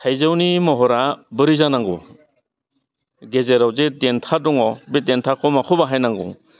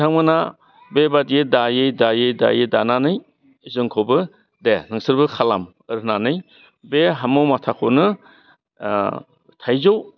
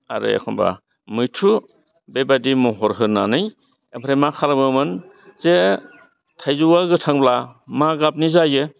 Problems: constant background noise